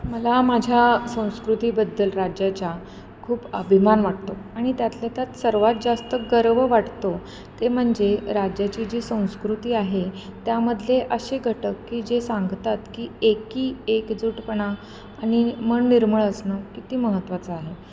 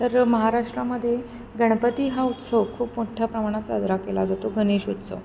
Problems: none marked